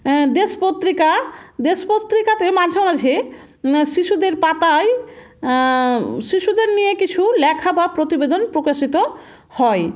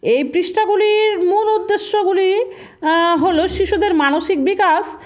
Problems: background sounds at intervals